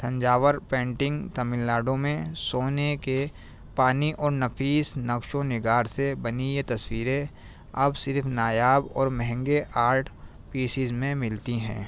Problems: constant background noise